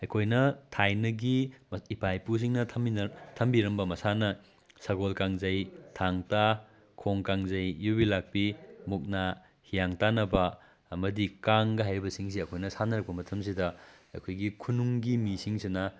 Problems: none marked